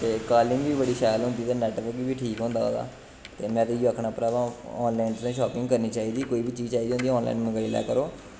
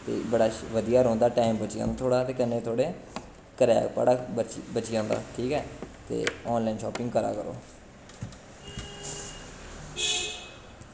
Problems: constant background noise